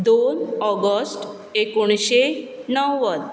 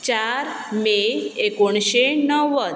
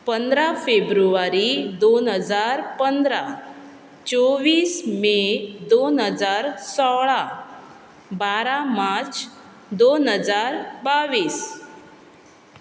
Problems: constant background noise